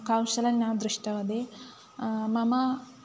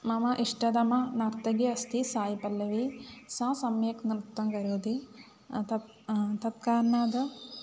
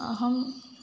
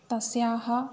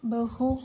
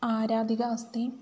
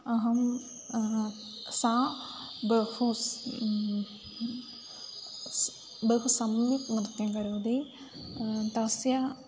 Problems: background sounds at intervals